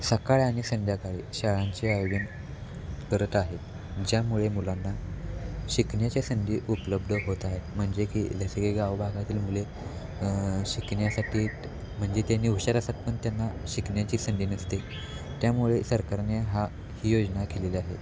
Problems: constant background noise